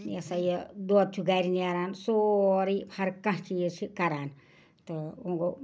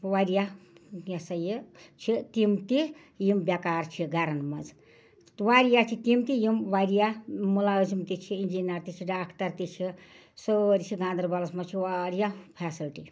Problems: none marked